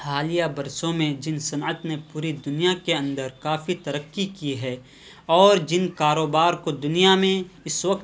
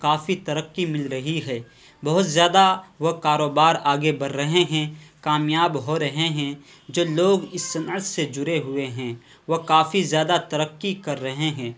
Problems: constant background noise